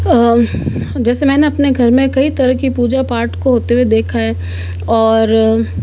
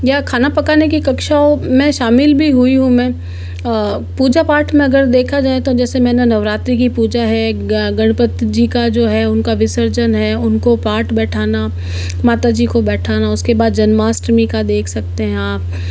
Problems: none marked